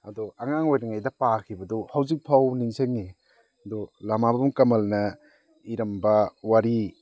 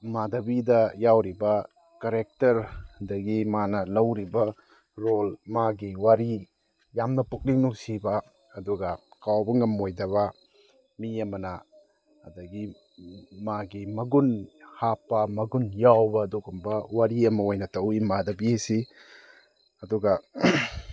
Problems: background sounds at intervals